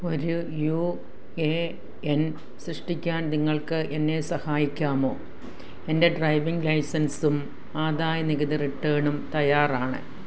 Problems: constant background noise